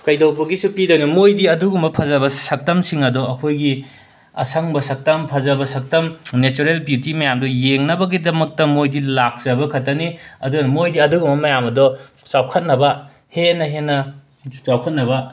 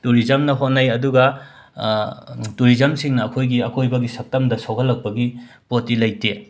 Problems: background sounds at intervals, background conversations at intervals